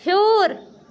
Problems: none marked